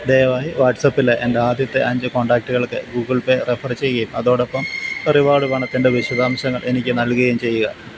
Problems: constant background noise